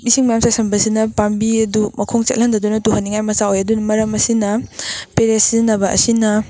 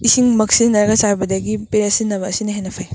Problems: background sounds at intervals